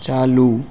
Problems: none marked